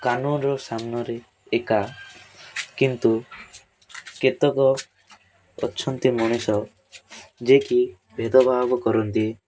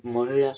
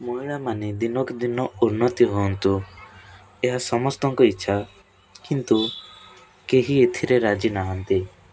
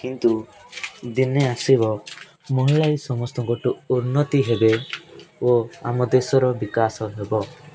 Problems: constant background noise